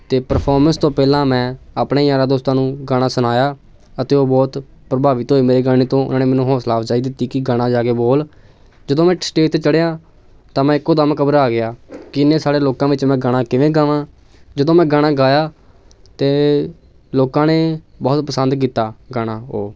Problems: none marked